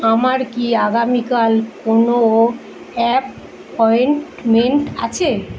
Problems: none marked